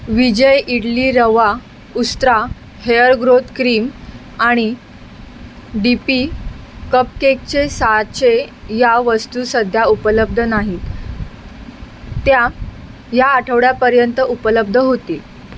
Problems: constant background noise